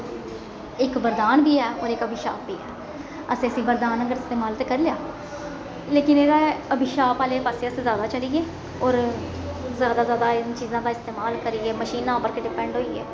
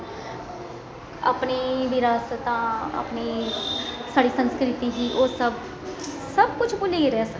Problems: constant background noise, echo